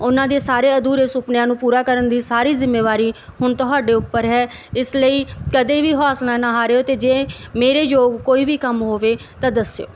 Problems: background sounds at intervals